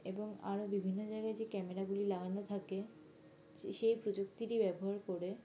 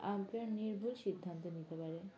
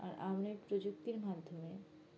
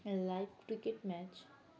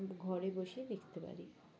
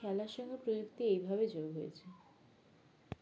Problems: background sounds at intervals, background conversations at intervals